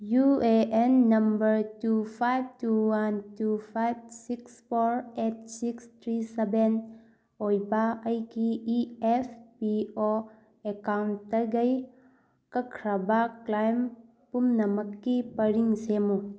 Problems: background sounds at intervals